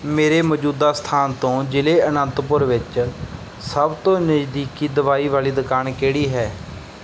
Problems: background sounds at intervals